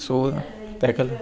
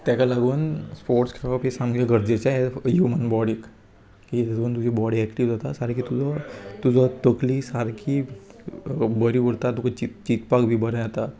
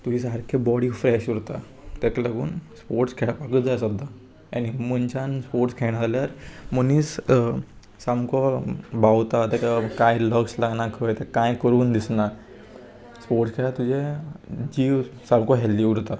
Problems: constant background noise